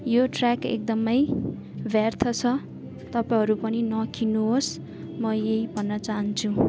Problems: constant background noise